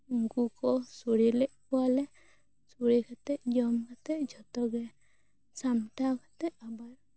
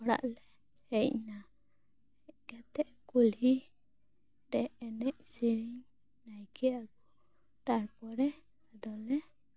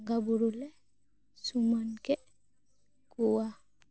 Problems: low volume